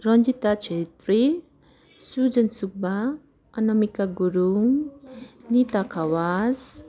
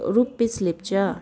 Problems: constant background noise